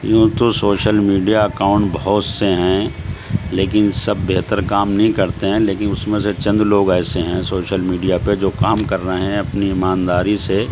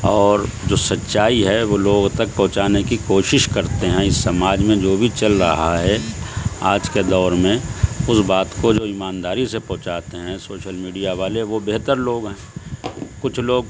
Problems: constant background noise, background conversations at intervals